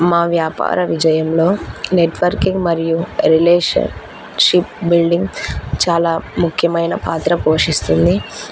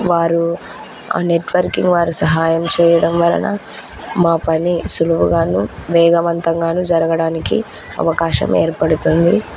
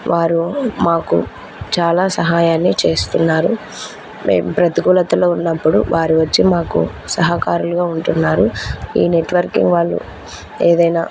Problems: constant background noise